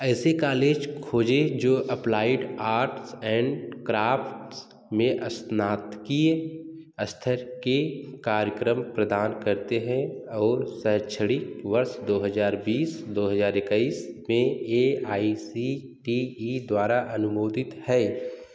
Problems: none marked